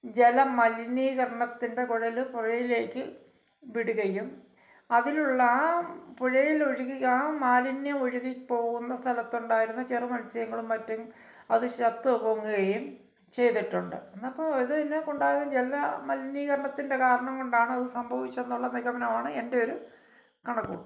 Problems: background sounds at intervals